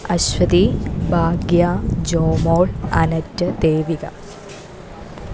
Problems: none marked